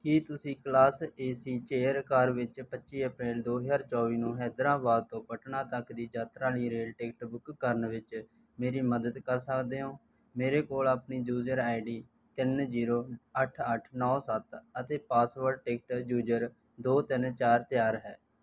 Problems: background sounds at intervals